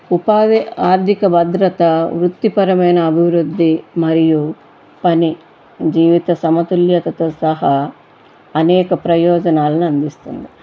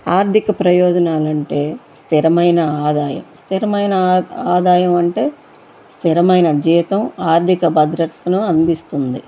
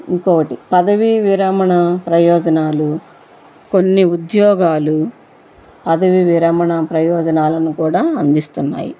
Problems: constant background noise